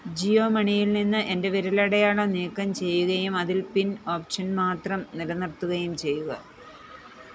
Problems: none marked